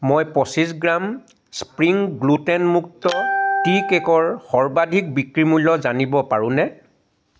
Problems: background sounds at intervals